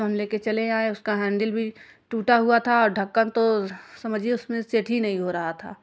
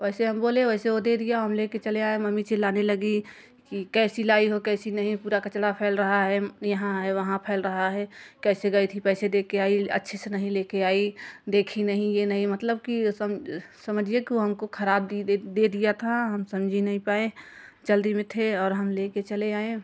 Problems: none marked